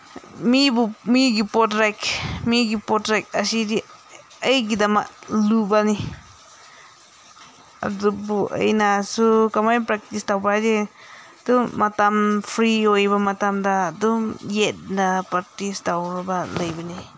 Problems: none marked